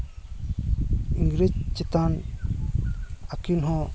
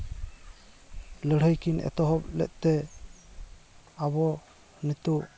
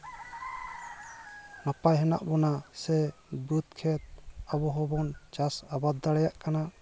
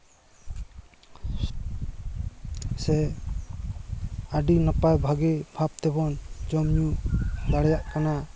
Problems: constant background noise, continuous background conversations